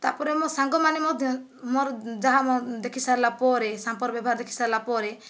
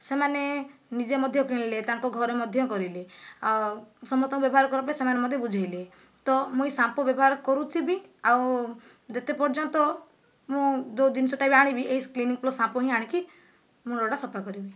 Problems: none marked